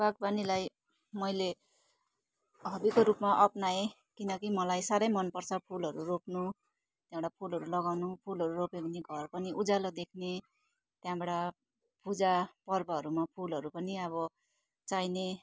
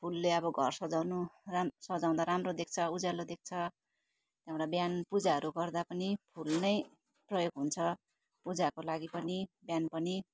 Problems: none marked